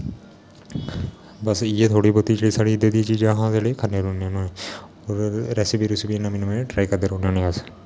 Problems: constant background noise